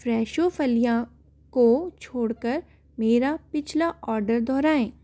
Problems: constant background noise